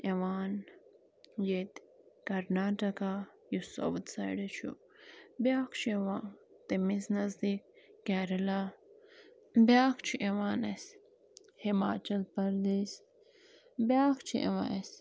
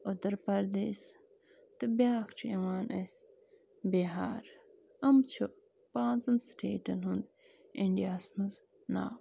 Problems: constant background noise